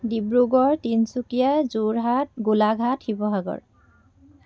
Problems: background conversations at intervals